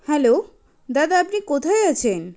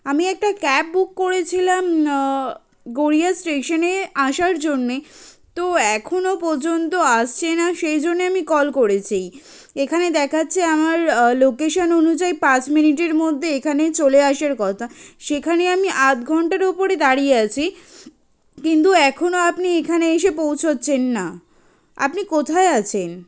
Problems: none marked